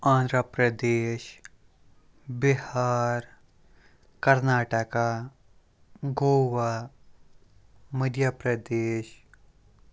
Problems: none marked